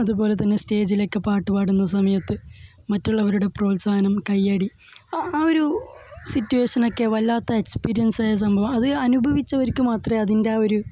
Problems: none marked